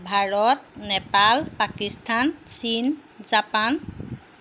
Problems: none marked